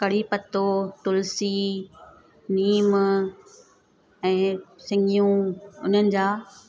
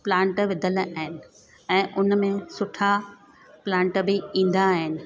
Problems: constant background noise